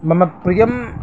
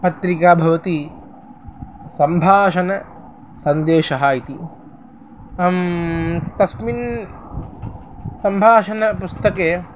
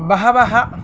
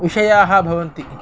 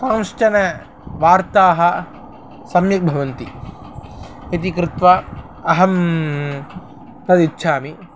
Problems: none marked